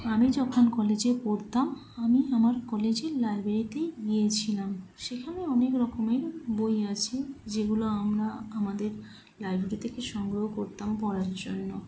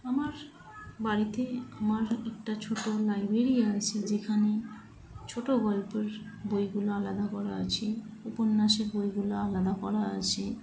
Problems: none marked